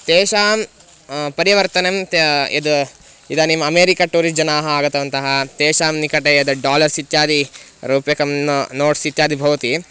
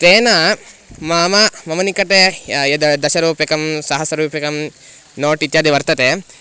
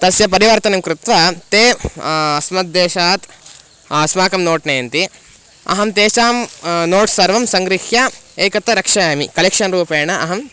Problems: constant background noise